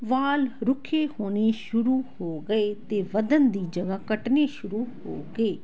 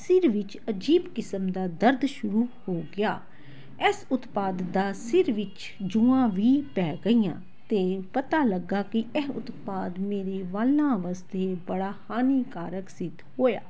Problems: constant background noise